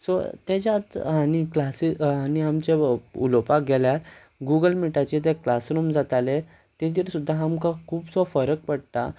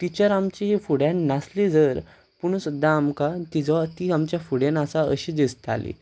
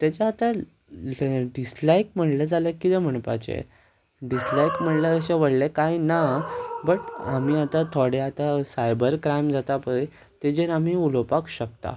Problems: constant background noise